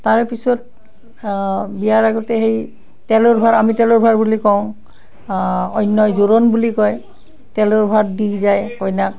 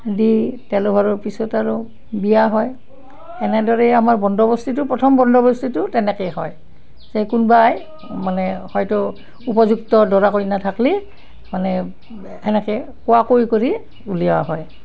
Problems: background sounds at intervals